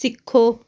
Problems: none marked